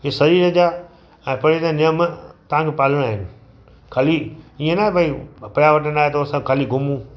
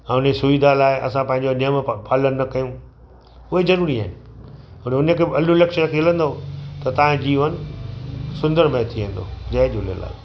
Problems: constant background noise, echo